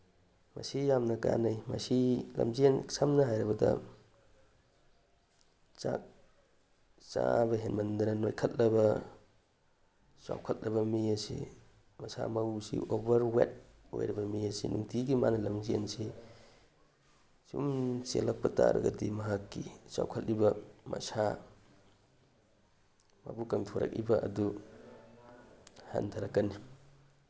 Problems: none marked